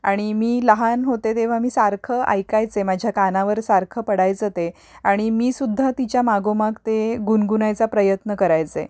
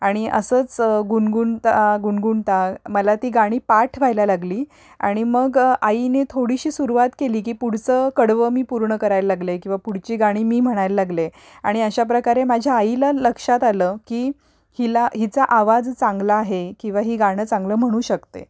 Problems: none marked